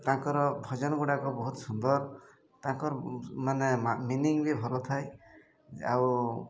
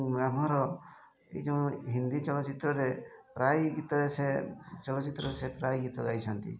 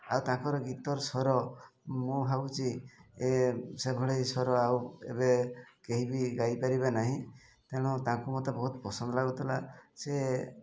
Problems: none marked